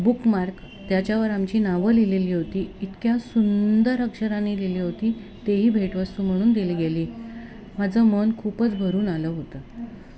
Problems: none marked